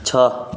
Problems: background sounds at intervals